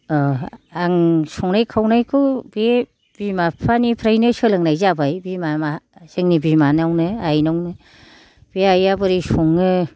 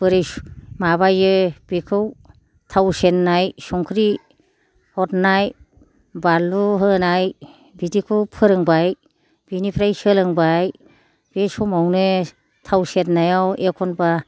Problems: low volume